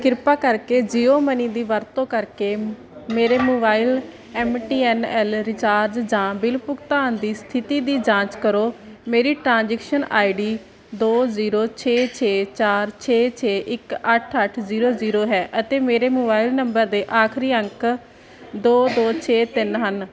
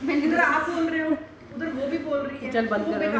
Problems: background sounds at intervals